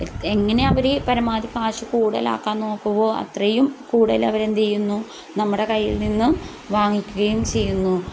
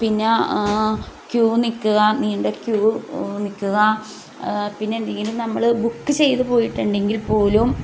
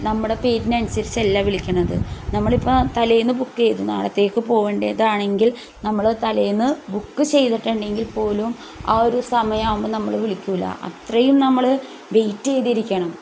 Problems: none marked